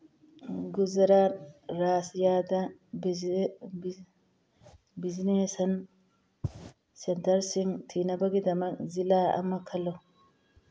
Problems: background sounds at intervals